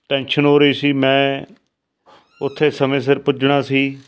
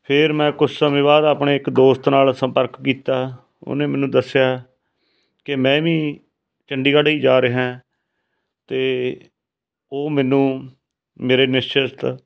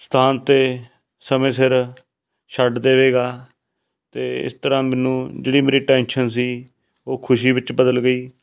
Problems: background sounds at intervals